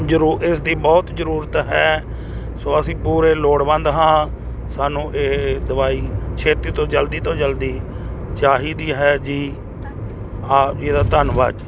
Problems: background conversations at intervals